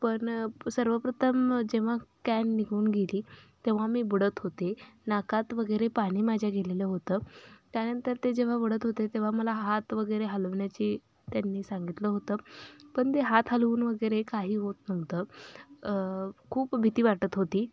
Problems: none marked